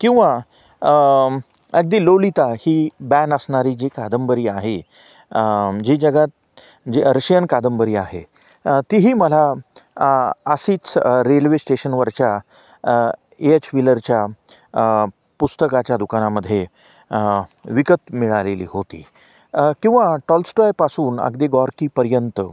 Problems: background sounds at intervals